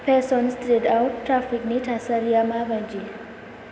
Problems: constant background noise